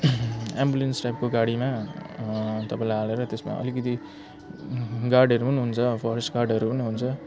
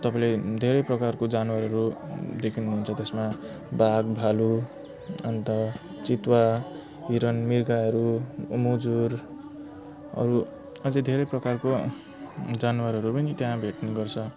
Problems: constant background noise